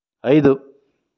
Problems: none marked